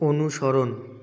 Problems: none marked